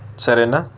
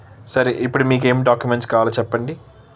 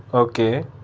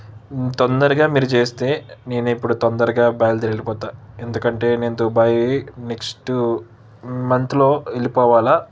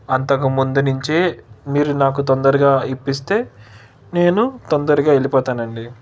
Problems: none marked